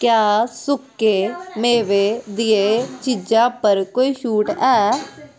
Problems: constant background noise